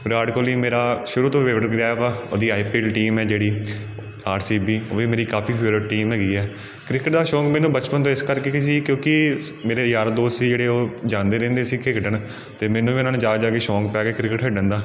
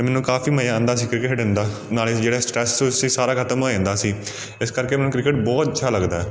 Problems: constant background noise